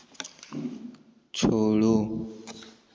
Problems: background sounds at intervals